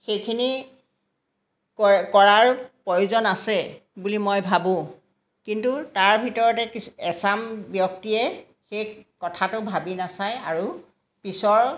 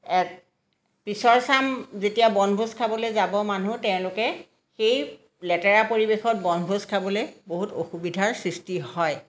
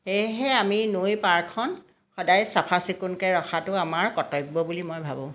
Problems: background sounds at intervals, background conversations at intervals